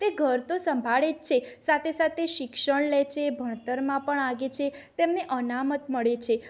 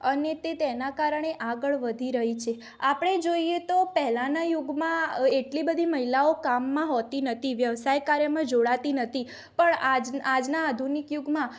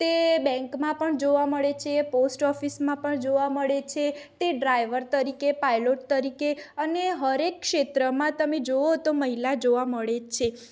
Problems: none marked